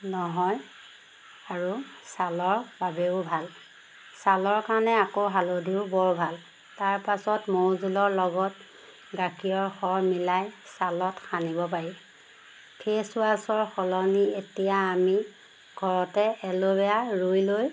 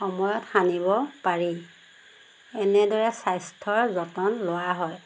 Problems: constant background noise